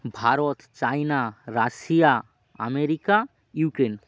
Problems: none marked